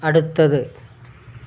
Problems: none marked